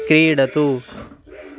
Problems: background sounds at intervals